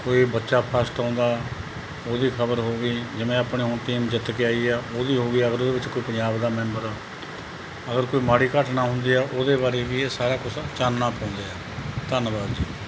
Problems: background sounds at intervals